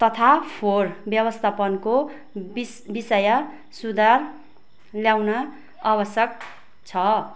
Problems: none marked